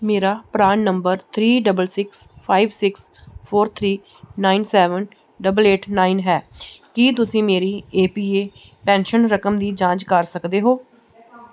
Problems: background conversations at intervals